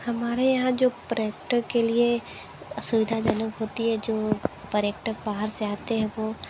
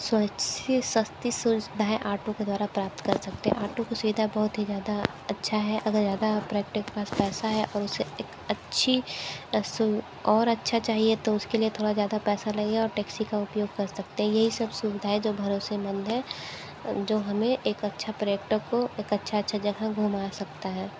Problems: low volume